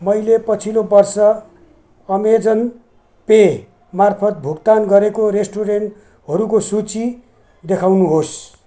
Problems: background sounds at intervals